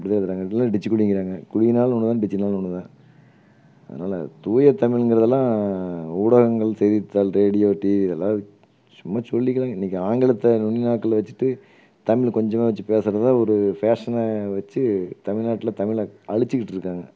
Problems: none marked